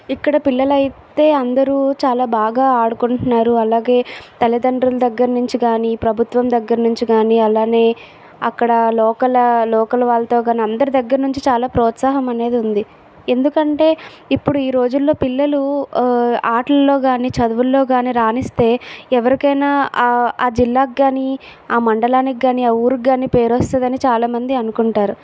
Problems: background sounds at intervals